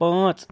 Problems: constant background noise